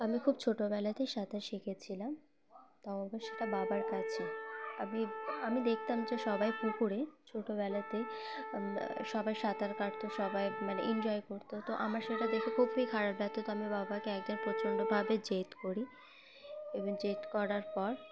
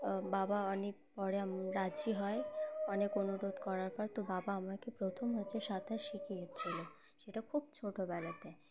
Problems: constant background noise